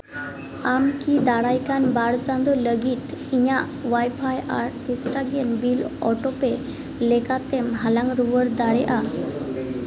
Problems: background sounds at intervals, background conversations at intervals, echo